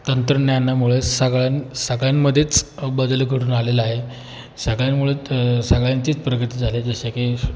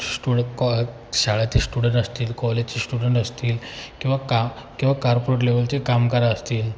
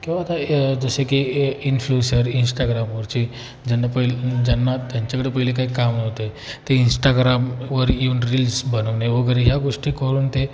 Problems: background sounds at intervals